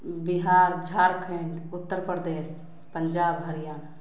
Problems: background sounds at intervals